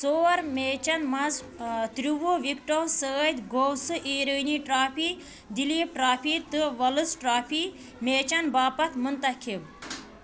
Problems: background sounds at intervals